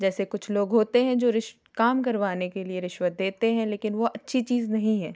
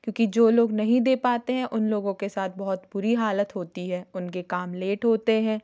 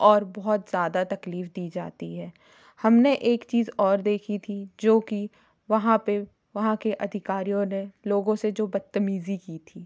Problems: background sounds at intervals